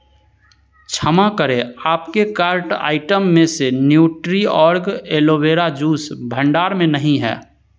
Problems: none marked